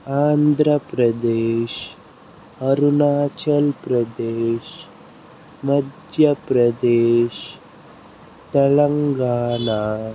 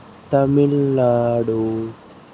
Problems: constant background noise